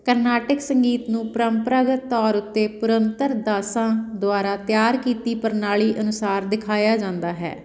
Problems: continuous background conversations